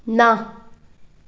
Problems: background sounds at intervals